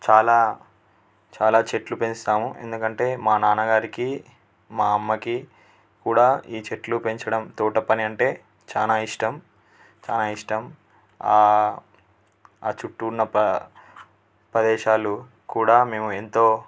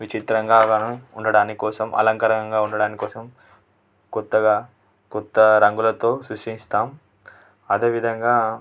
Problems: constant background noise